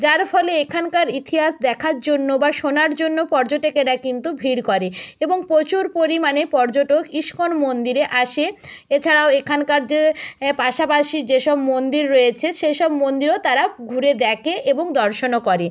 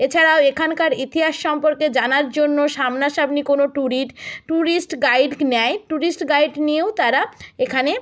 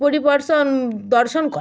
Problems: none marked